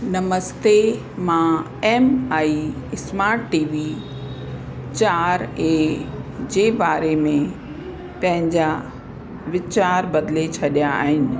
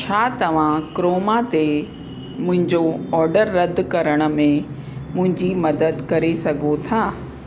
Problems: constant background noise